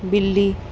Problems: none marked